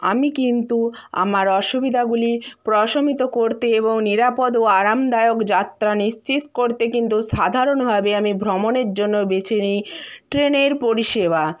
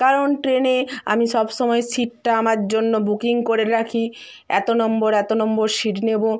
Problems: constant background noise